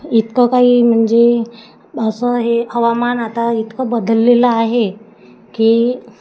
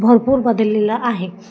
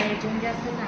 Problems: constant background noise, continuous background conversations